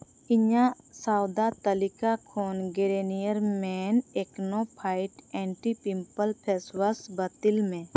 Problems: constant background noise